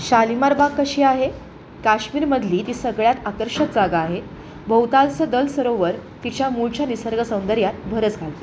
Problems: constant background noise, continuous background conversations